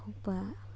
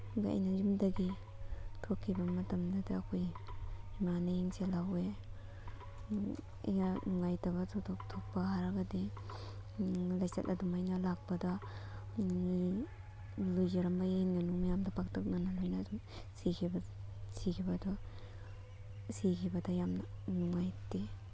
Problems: constant background noise